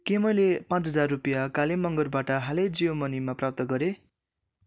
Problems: none marked